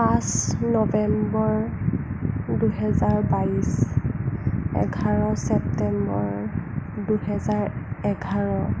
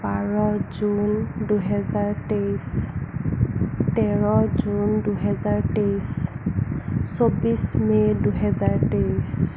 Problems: constant background noise